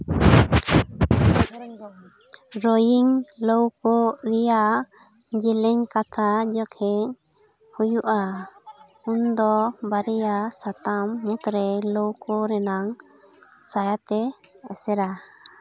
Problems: background conversations at intervals